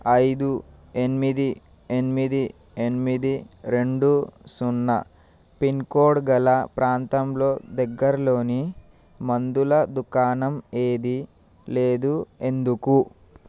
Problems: none marked